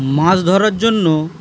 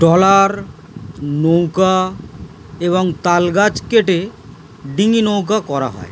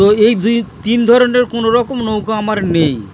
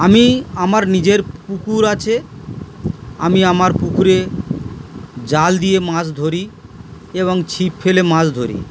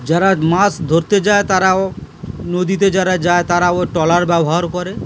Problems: background sounds at intervals